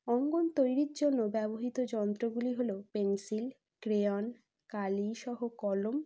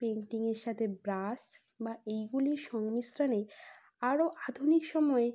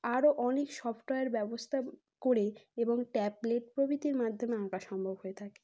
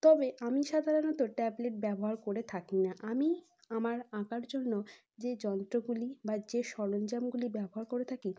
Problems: constant background noise